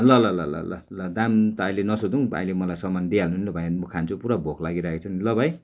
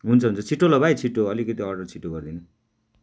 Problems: background sounds at intervals